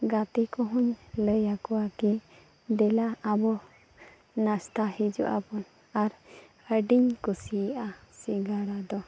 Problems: background conversations at intervals